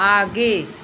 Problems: constant background noise